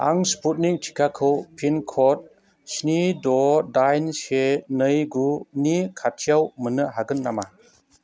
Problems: constant background noise